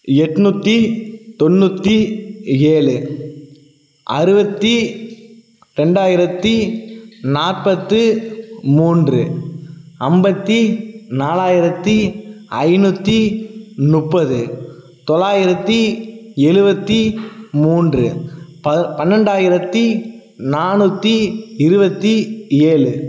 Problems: none marked